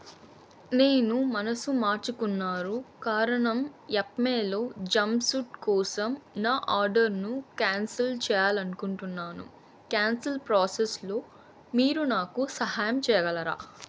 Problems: constant background noise